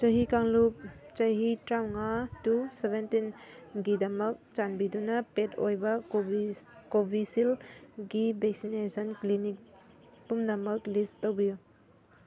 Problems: none marked